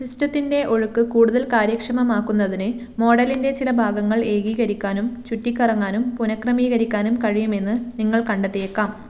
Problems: none marked